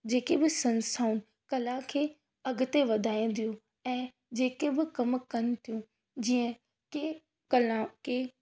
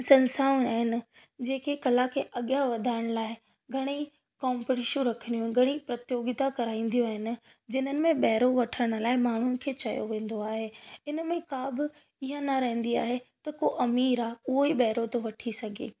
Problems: none marked